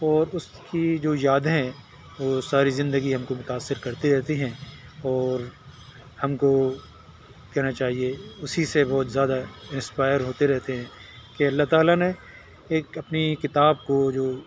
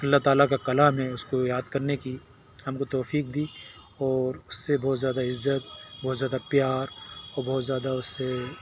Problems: none marked